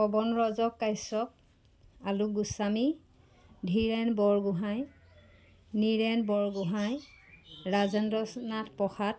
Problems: background sounds at intervals